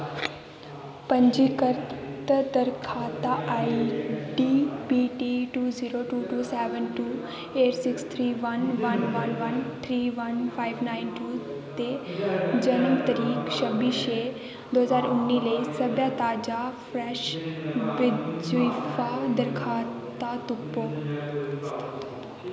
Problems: constant background noise, background conversations at intervals